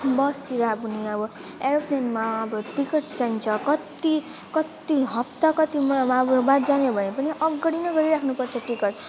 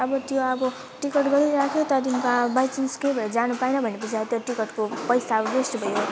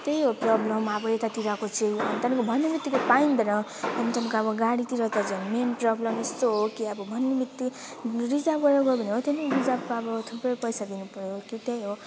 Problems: none marked